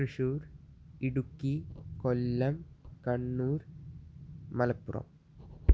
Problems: low volume